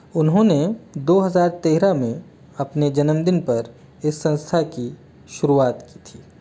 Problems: none marked